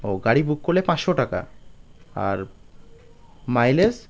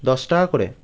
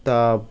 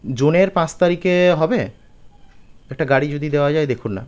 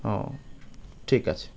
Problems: background sounds at intervals